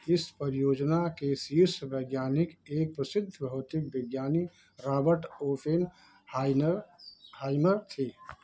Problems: background sounds at intervals